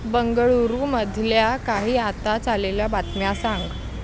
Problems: constant background noise